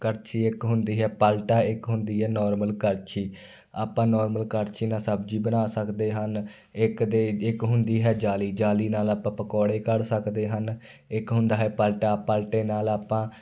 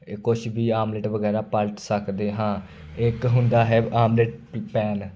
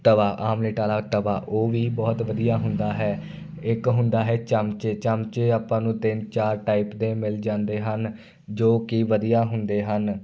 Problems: none marked